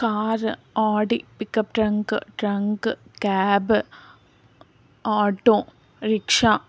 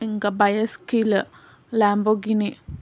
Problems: none marked